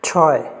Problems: none marked